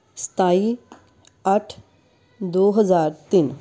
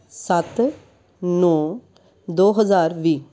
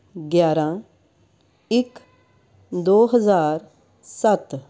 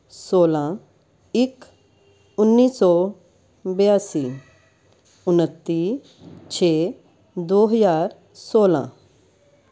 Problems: constant background noise